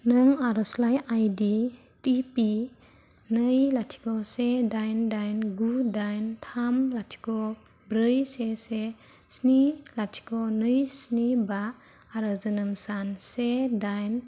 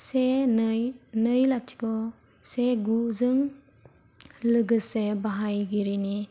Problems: low volume